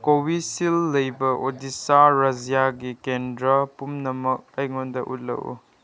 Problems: none marked